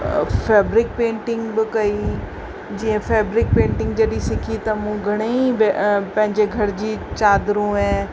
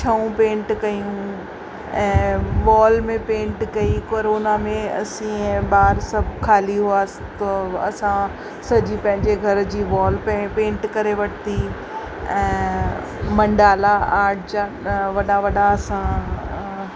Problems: constant background noise